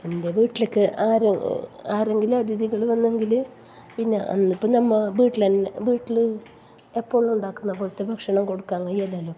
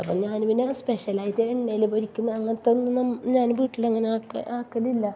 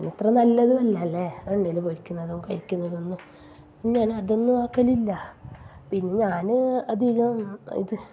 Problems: background sounds at intervals, low volume